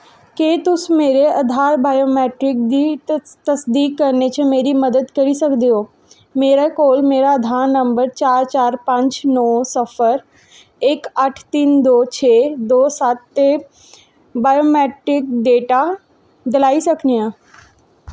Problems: none marked